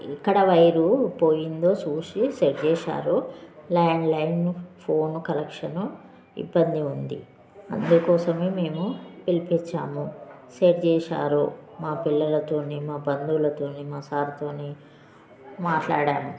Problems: continuous background conversations